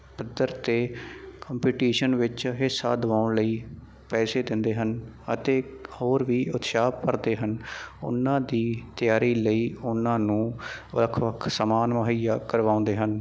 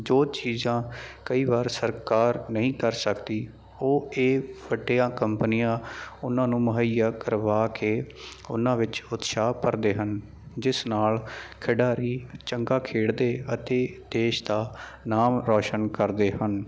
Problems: constant background noise